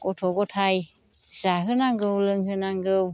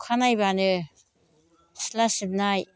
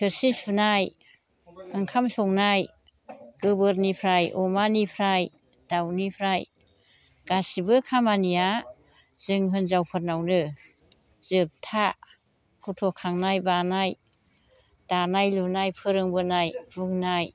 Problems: constant background noise